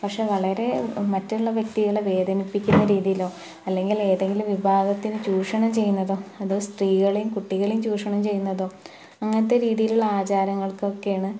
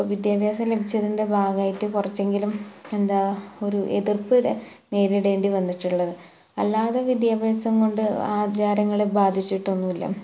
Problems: none marked